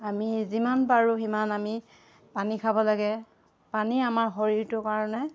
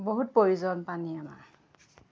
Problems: background conversations at intervals